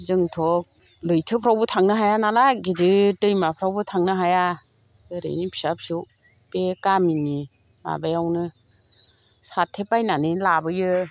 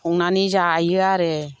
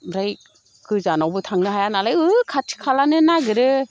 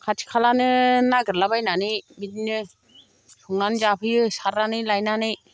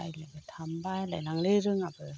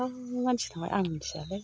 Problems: none marked